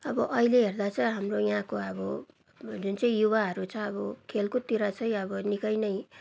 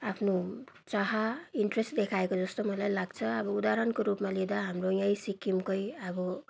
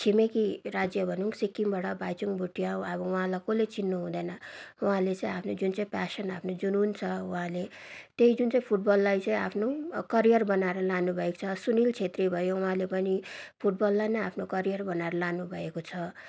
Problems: background sounds at intervals